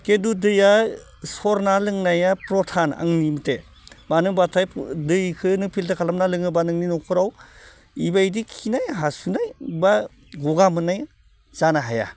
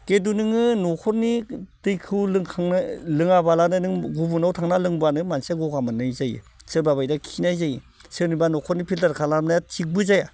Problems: constant background noise